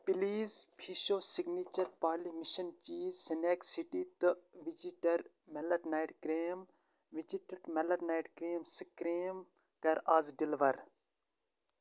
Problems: constant background noise